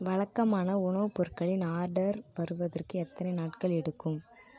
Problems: none marked